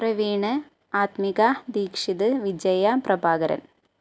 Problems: none marked